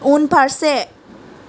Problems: constant background noise